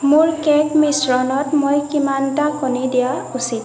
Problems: echo